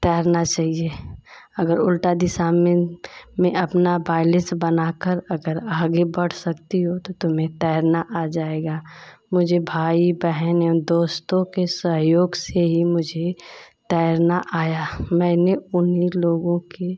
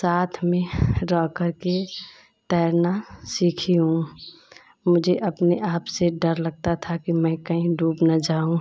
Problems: constant background noise